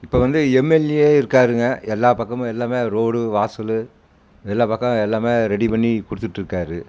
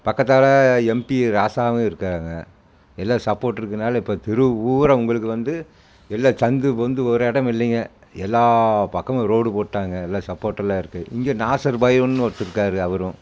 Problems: constant background noise